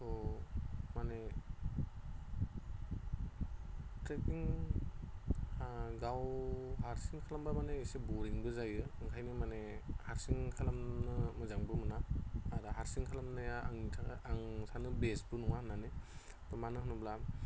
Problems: constant background noise